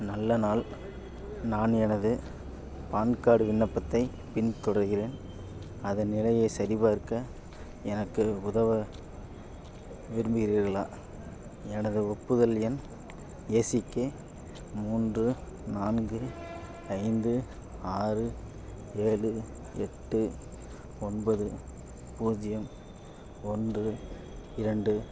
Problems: background sounds at intervals